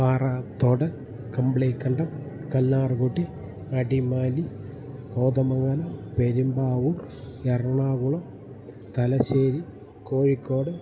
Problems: background sounds at intervals